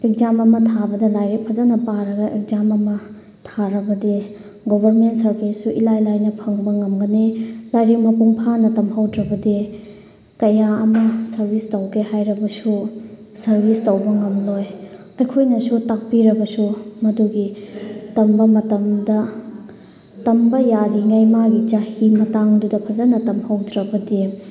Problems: background sounds at intervals